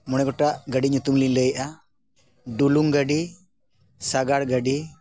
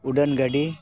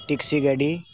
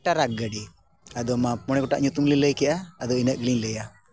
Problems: none marked